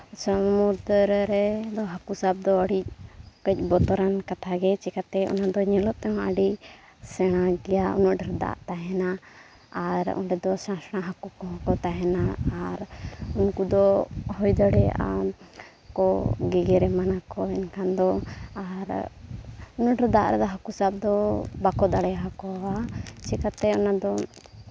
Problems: constant background noise